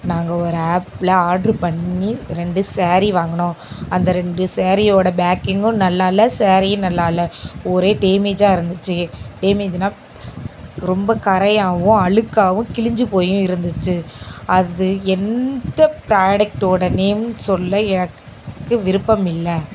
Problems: none marked